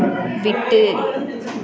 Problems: continuous background conversations